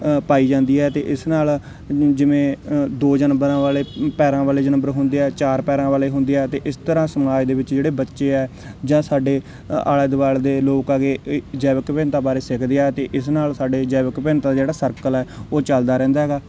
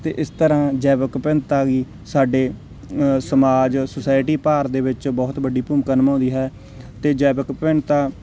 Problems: none marked